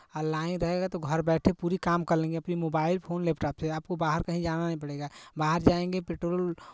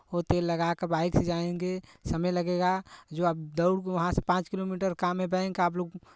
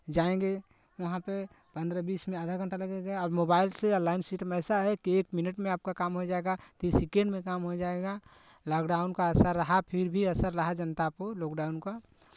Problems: none marked